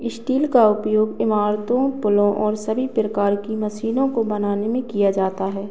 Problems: background sounds at intervals